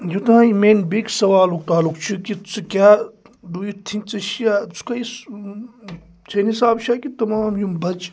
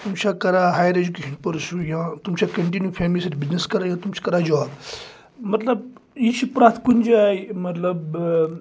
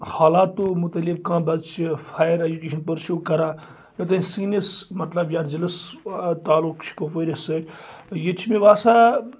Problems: none marked